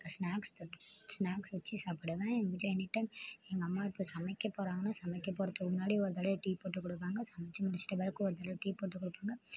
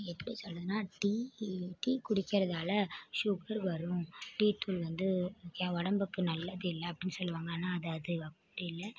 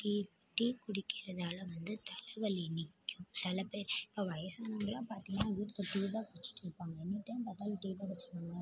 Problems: low volume